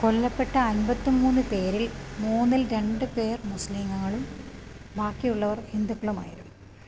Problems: low volume